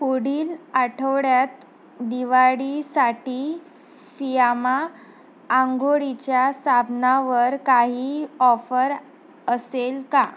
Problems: constant background noise